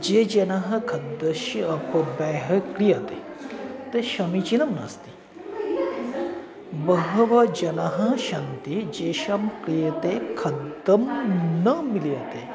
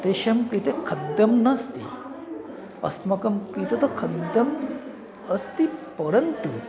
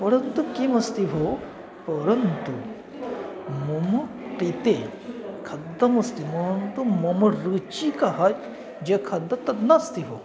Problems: constant background noise